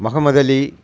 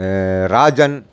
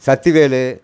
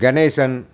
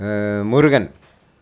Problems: constant background noise